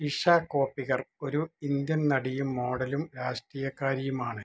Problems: low volume